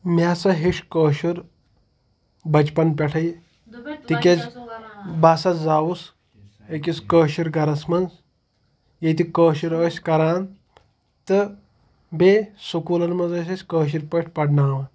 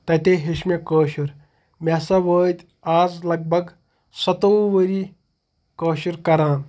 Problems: none marked